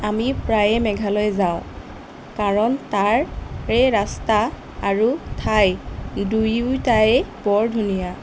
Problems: constant background noise